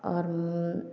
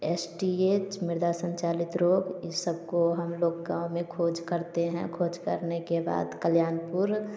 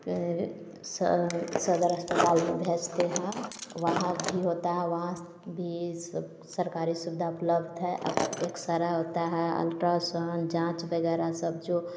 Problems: background sounds at intervals